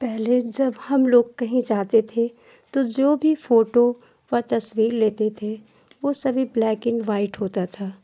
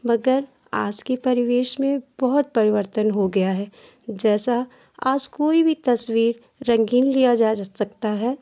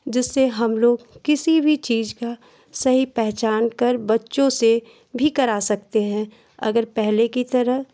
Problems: constant background noise